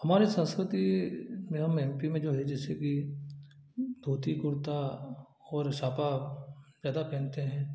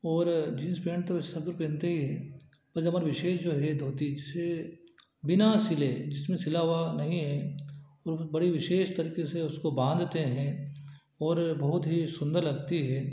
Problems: none marked